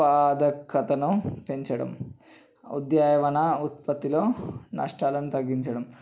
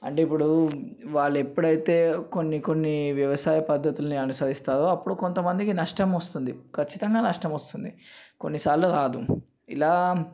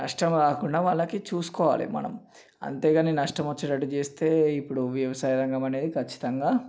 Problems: none marked